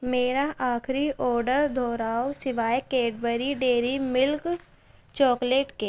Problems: constant background noise